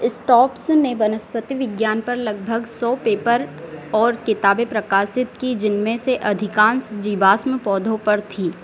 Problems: constant background noise, background conversations at intervals